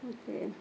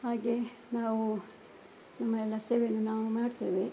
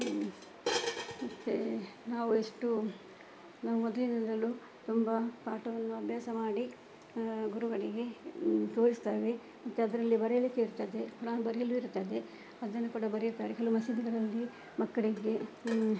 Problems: background sounds at intervals